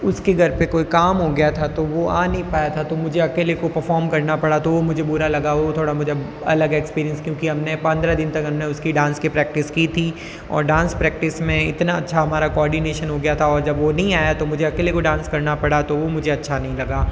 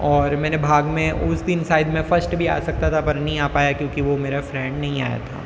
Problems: constant background noise, background conversations at intervals